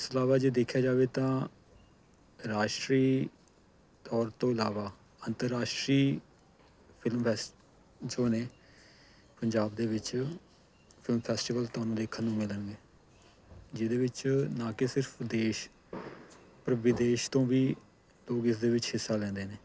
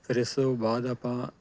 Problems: none marked